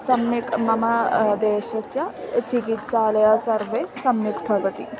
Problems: constant background noise, continuous background conversations